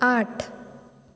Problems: none marked